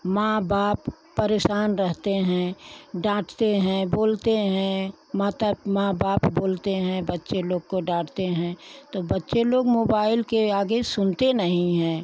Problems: none marked